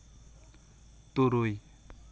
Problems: constant background noise